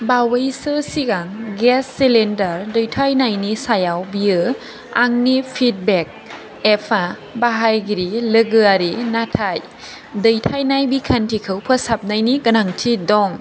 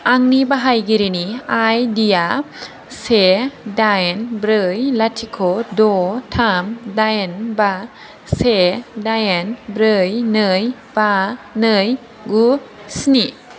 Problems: constant background noise